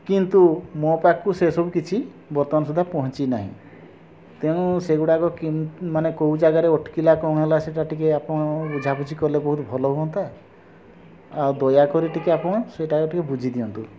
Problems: constant background noise